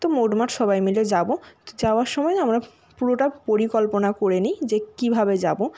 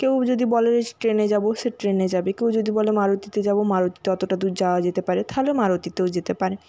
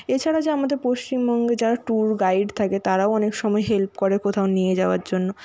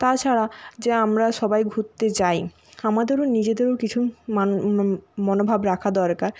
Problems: none marked